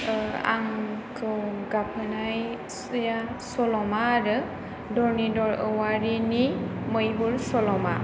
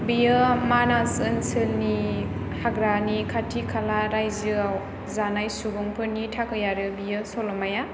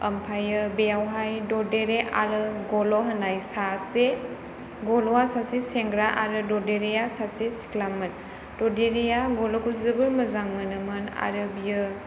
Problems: none marked